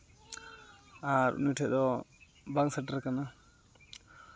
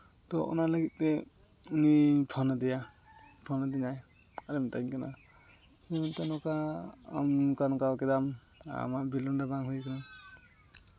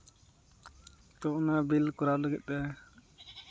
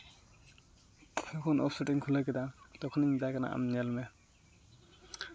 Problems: constant background noise